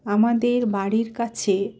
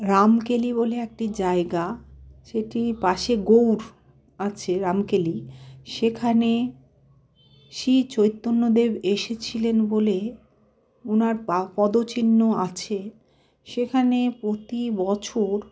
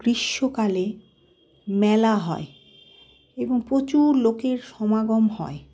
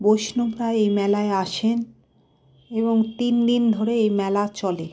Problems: background sounds at intervals